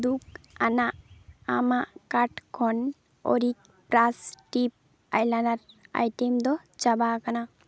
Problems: background sounds at intervals